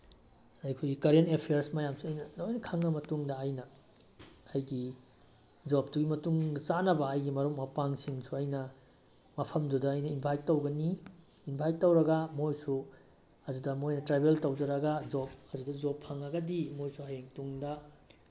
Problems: background sounds at intervals